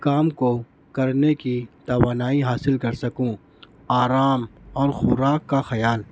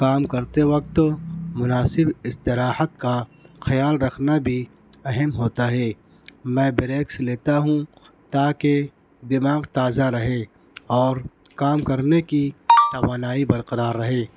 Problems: background sounds at intervals